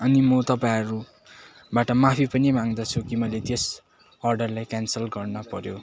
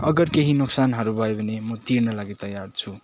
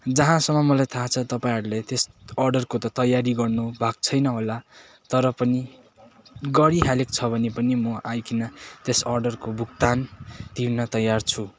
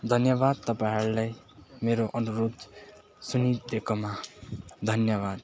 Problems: constant background noise, continuous background conversations